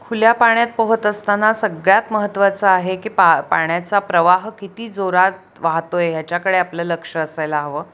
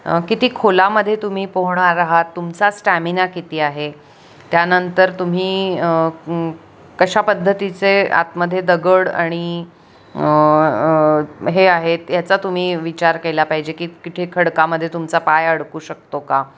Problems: constant background noise